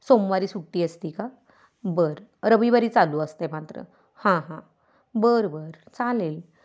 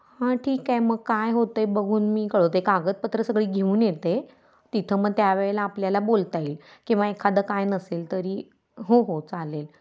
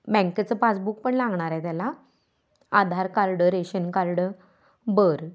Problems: constant background noise, background conversations at intervals